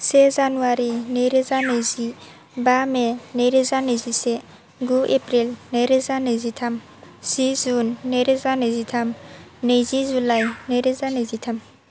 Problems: none marked